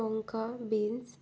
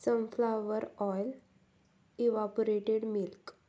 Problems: none marked